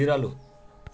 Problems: constant background noise